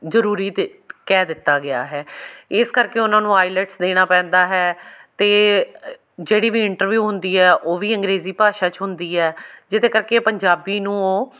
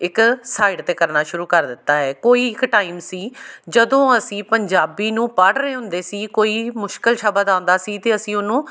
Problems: background sounds at intervals